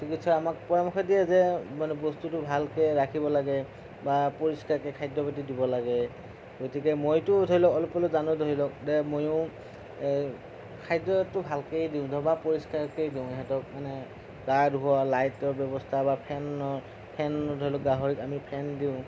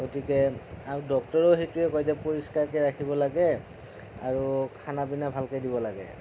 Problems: constant background noise, low volume